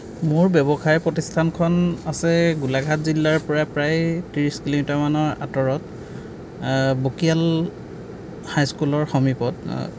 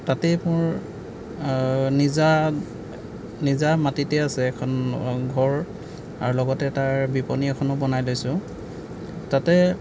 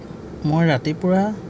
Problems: background sounds at intervals